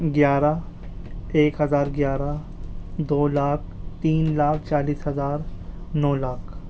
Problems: constant background noise